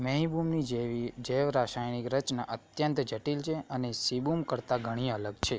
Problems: background sounds at intervals